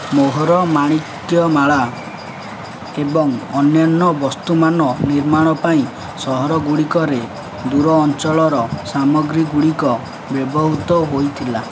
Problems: none marked